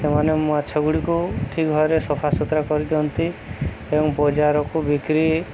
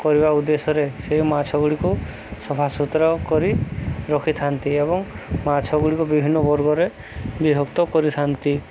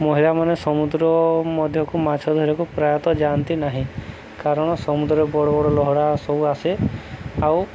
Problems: none marked